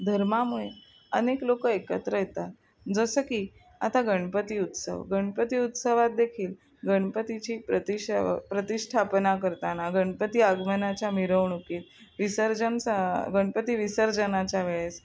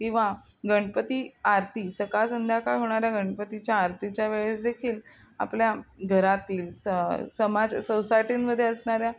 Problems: none marked